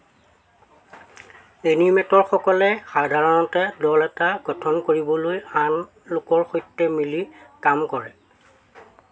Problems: constant background noise